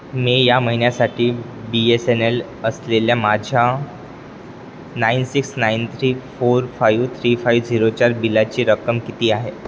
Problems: constant background noise